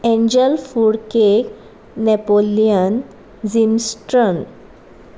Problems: background sounds at intervals